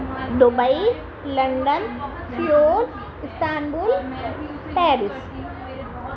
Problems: constant background noise